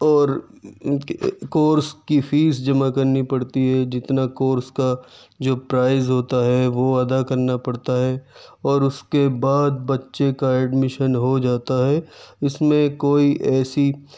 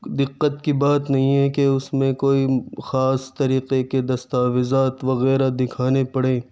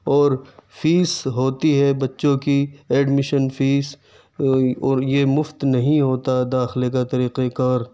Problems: background sounds at intervals, background conversations at intervals